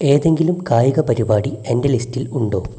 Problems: constant background noise